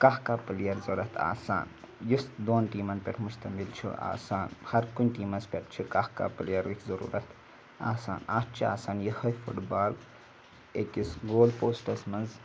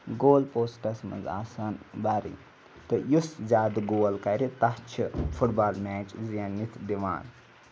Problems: background sounds at intervals